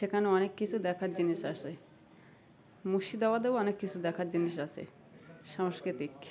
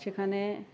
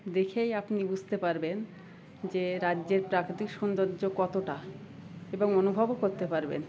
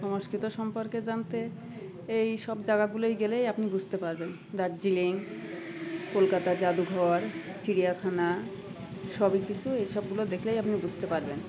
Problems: constant background noise, continuous background conversations